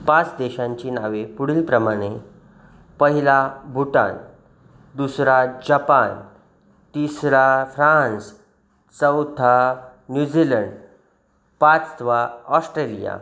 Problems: background sounds at intervals